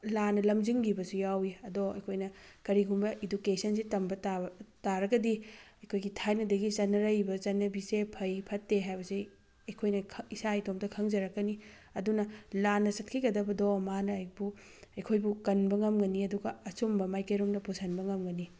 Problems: background sounds at intervals